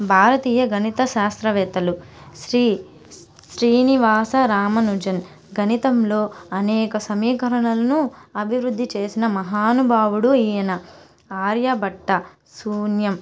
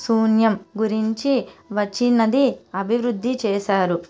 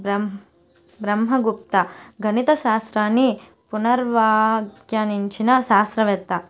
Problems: constant background noise